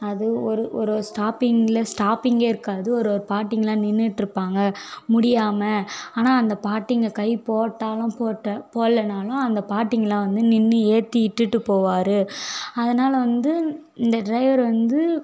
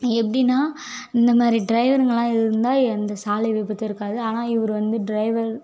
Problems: none marked